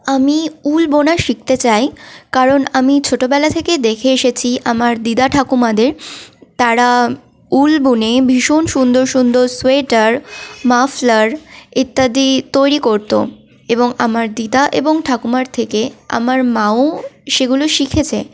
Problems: none marked